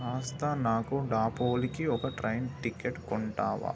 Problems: constant background noise